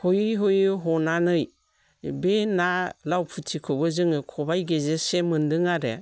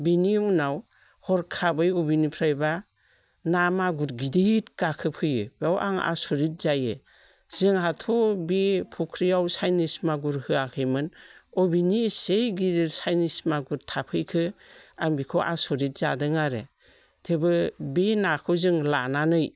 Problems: none marked